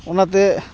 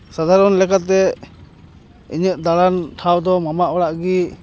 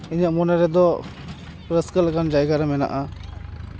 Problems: constant background noise, background conversations at intervals